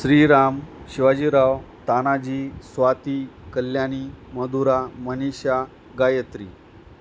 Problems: constant background noise